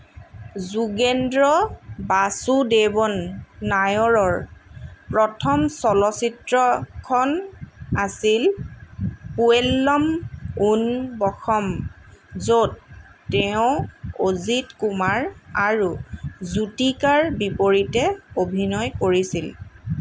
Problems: constant background noise